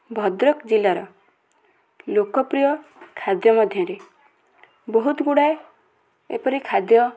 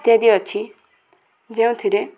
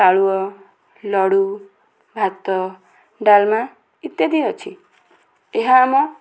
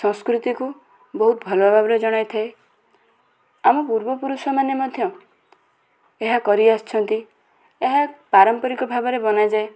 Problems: constant background noise, continuous background conversations